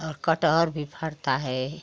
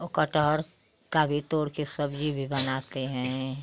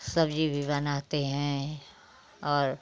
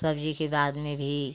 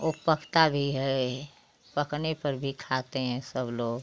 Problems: constant background noise